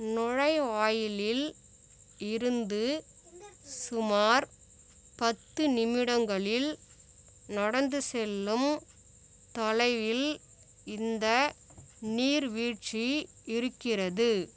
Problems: background conversations at intervals